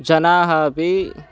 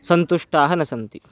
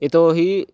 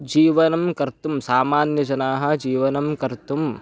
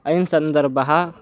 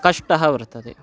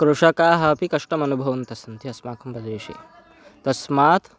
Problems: background sounds at intervals